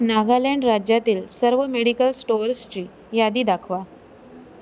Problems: constant background noise